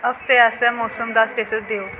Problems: constant background noise